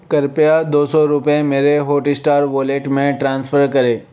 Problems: none marked